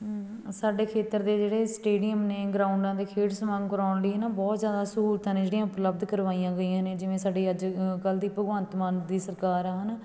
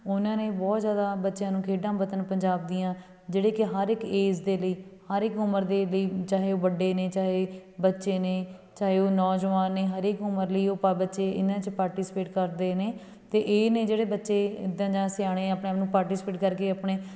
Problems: background conversations at intervals